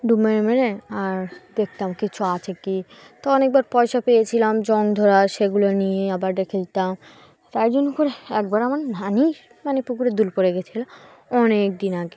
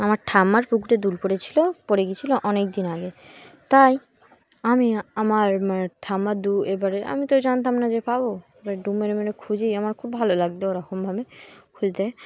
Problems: background sounds at intervals